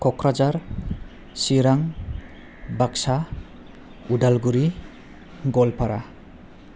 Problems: none marked